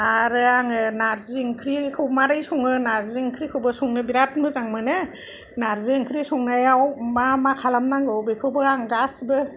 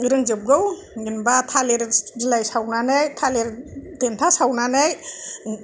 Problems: none marked